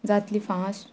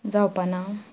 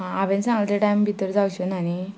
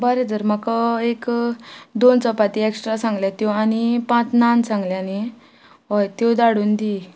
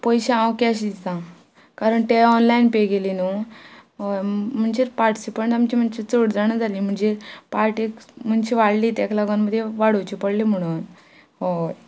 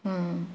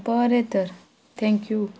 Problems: background sounds at intervals